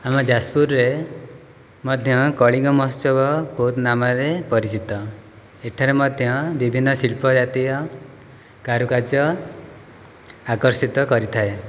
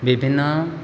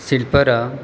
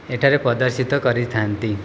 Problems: background sounds at intervals